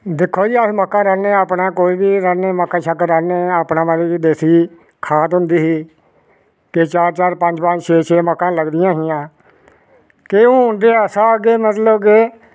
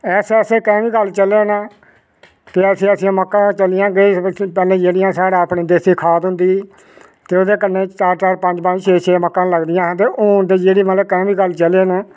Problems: none marked